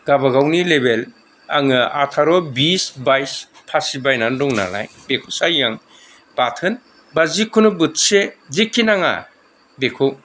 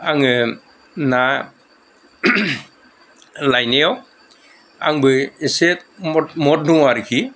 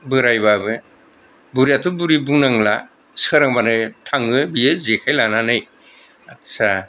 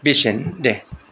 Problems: none marked